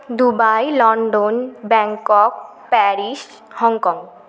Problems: constant background noise, background conversations at intervals